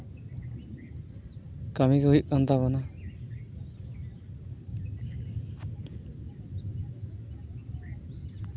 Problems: background sounds at intervals